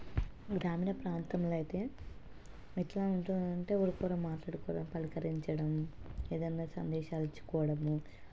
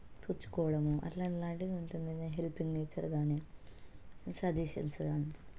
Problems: constant background noise, low volume